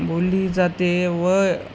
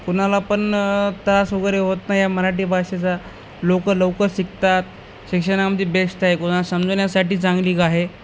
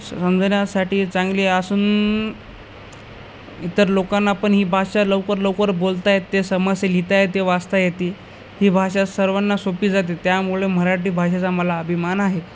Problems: constant background noise